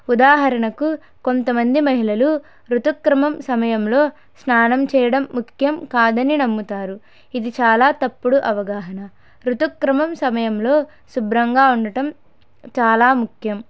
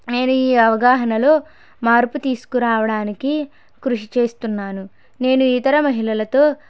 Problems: none marked